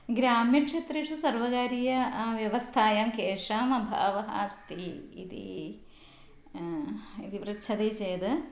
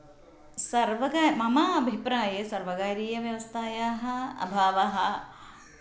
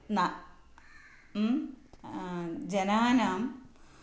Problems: none marked